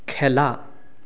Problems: none marked